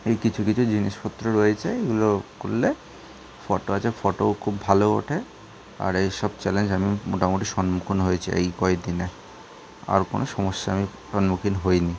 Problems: background sounds at intervals